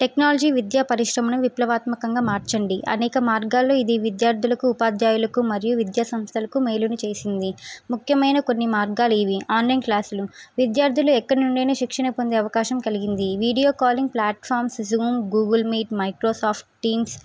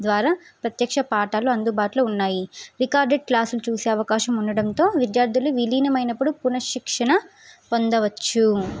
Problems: none marked